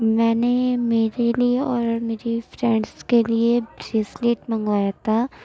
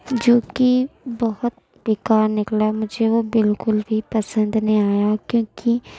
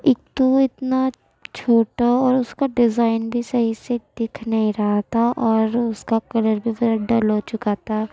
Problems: background sounds at intervals